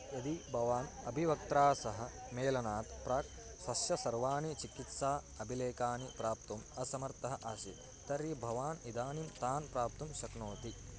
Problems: constant background noise